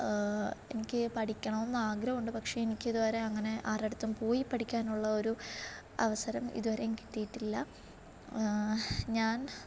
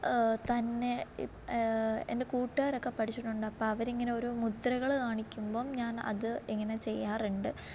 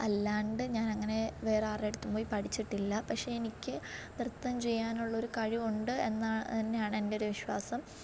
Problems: low volume